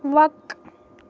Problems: none marked